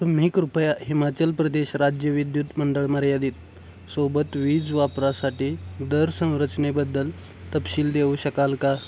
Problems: constant background noise